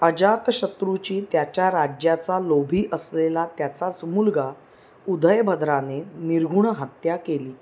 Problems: background sounds at intervals